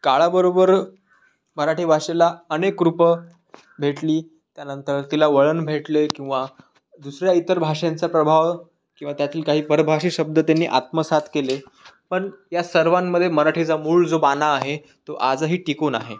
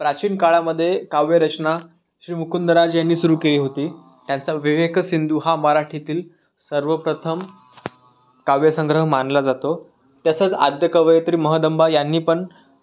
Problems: constant background noise